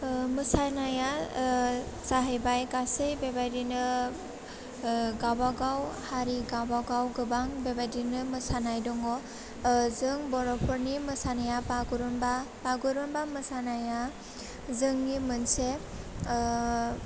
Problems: low volume